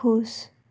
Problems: low volume